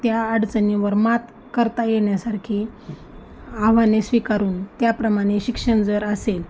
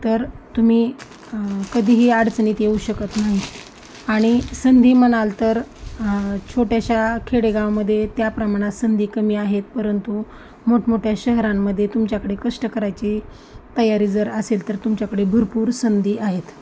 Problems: constant background noise, continuous background conversations